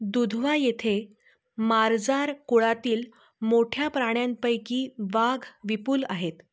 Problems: echo